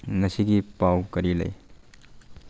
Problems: low volume